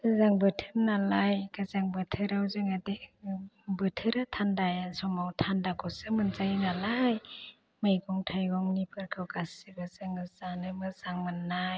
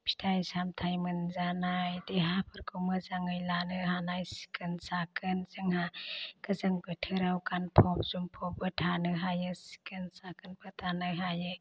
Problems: constant background noise